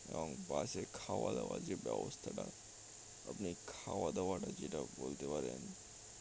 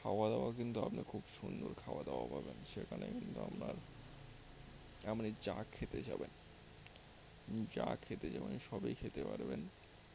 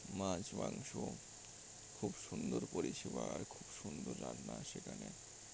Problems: constant background noise